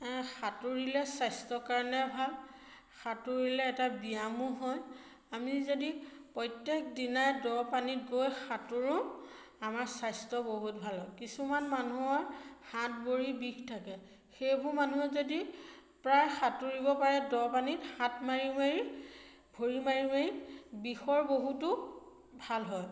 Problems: none marked